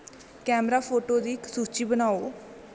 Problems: constant background noise